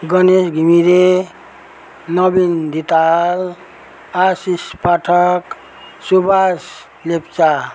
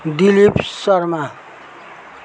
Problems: background sounds at intervals